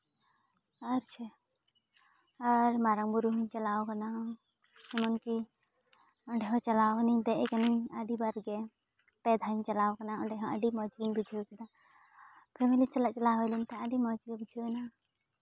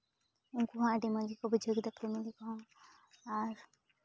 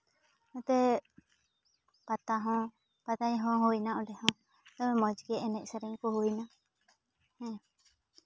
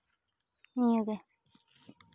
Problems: background sounds at intervals